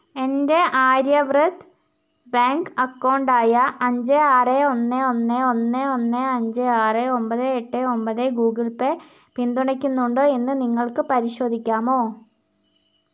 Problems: constant background noise